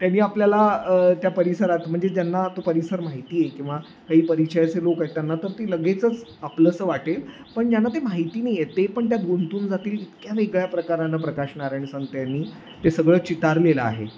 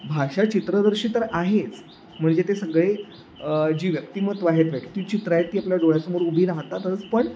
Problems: none marked